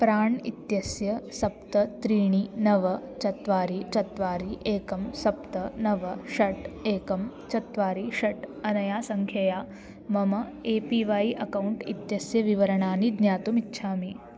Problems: constant background noise